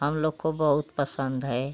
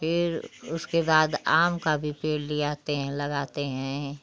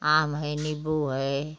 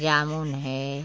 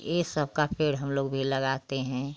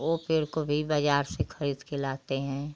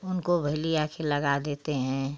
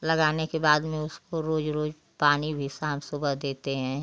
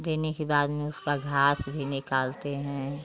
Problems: none marked